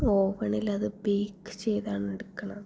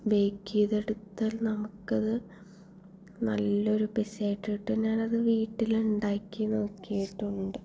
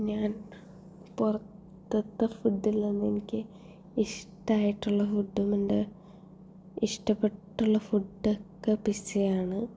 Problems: low volume